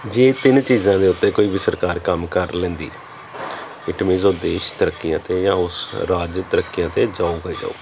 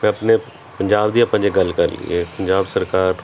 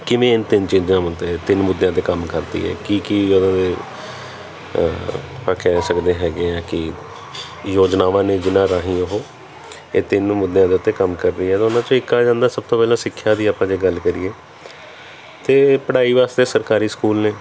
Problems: background conversations at intervals